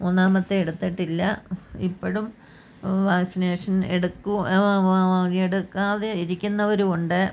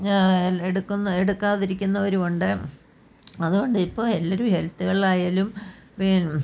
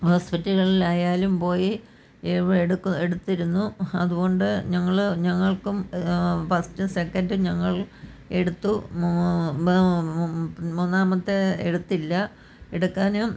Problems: background conversations at intervals